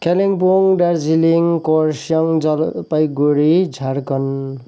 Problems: none marked